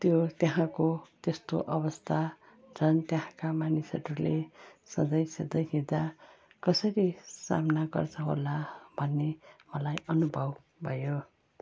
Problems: constant background noise